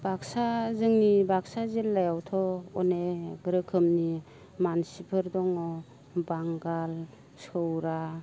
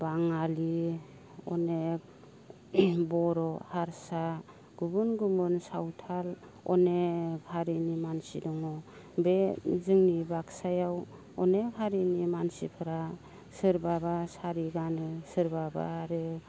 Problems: low volume